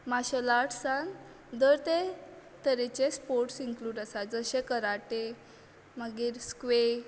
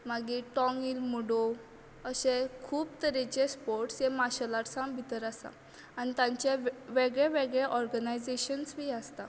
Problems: none marked